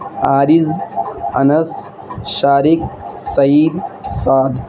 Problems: constant background noise